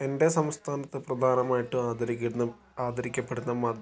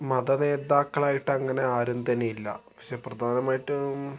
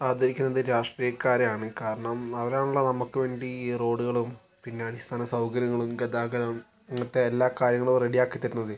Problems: none marked